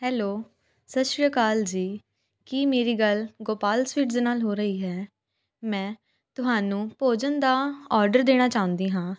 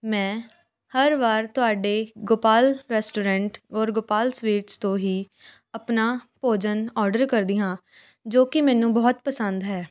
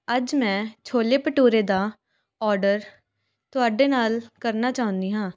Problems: constant background noise, continuous background conversations